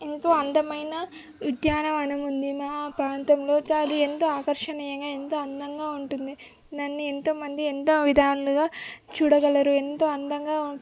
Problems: background sounds at intervals